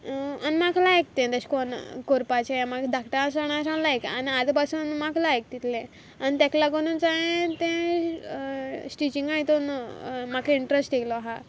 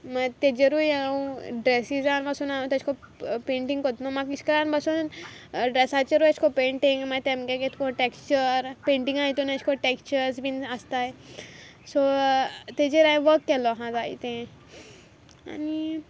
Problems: background sounds at intervals